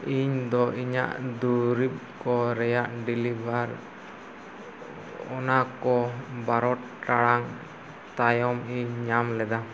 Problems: constant background noise